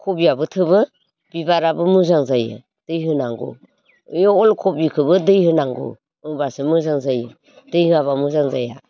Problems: constant background noise